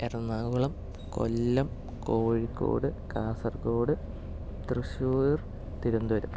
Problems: low volume